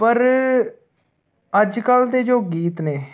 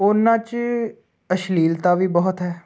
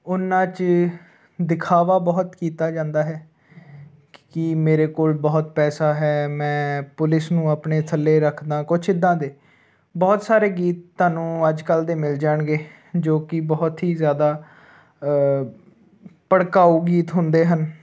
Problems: none marked